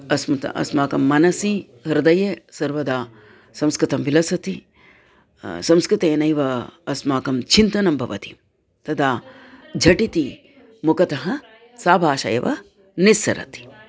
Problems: constant background noise, continuous background conversations